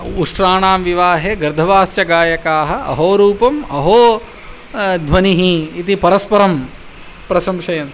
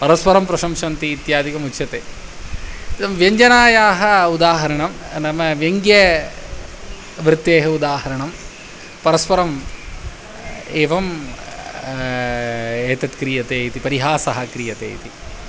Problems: constant background noise